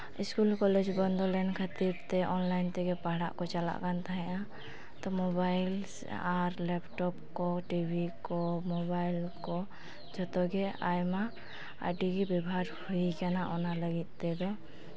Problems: constant background noise